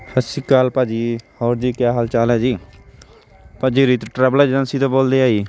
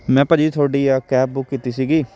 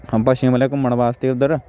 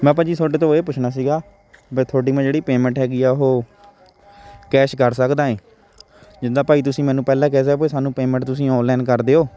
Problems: constant background noise, continuous background conversations